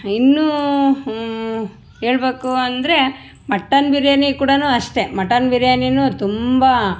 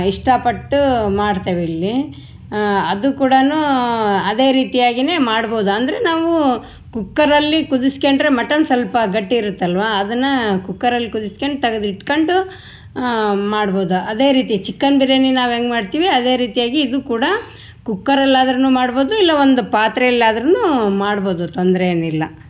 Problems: none marked